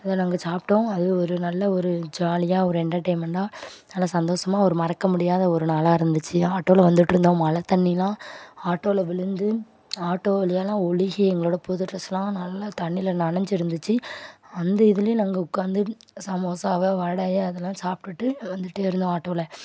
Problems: background sounds at intervals